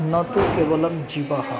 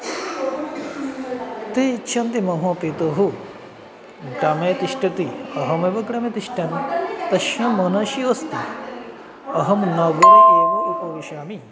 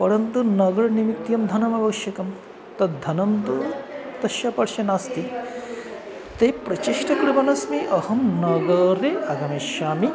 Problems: constant background noise